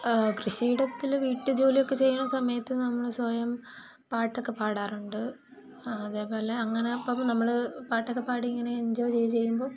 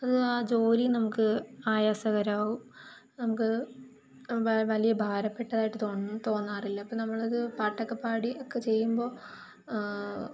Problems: constant background noise